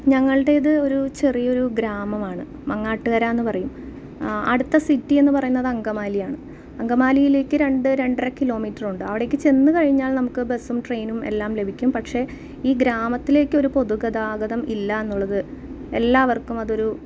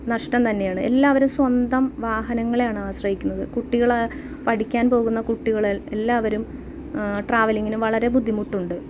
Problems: background sounds at intervals